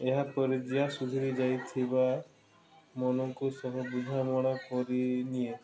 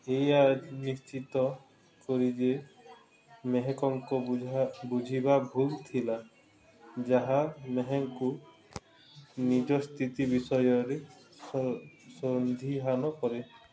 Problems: constant background noise, continuous background conversations